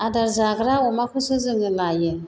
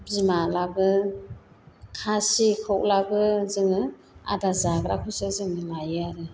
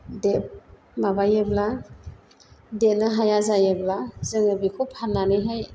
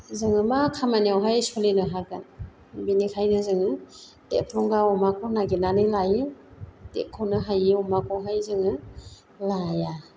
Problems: constant background noise